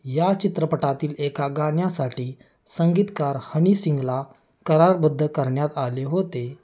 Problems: none marked